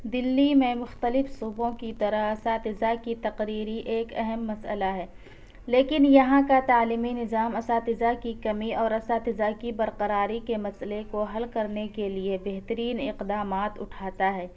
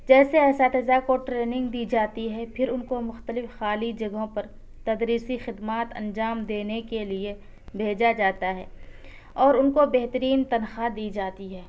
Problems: none marked